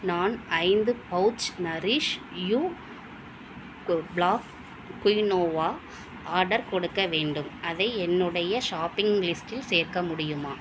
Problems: low volume